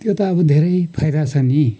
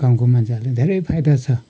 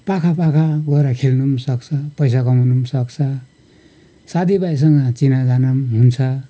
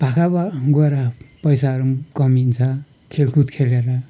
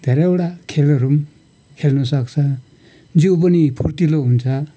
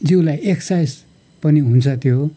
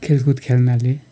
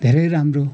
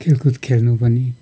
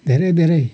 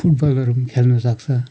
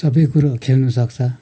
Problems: none marked